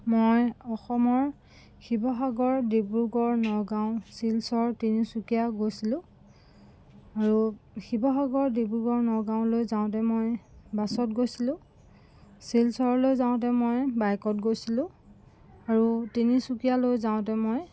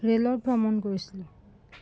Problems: none marked